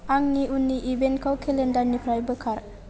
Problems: constant background noise